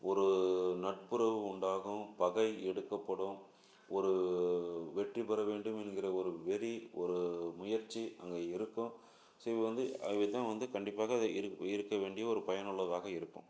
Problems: low volume